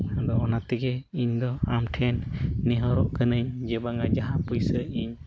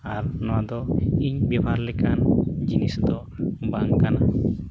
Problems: constant background noise